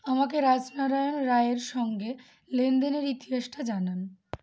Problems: none marked